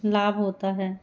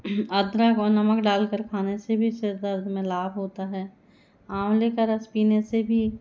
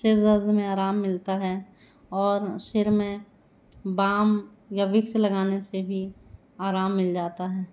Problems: background sounds at intervals